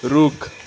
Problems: constant background noise